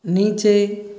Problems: none marked